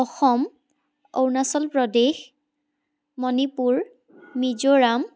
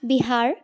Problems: none marked